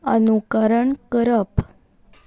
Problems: constant background noise